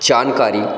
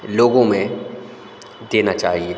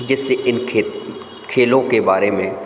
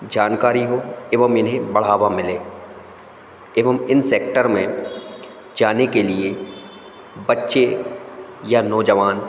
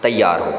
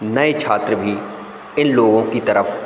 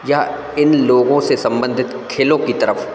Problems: constant background noise, echo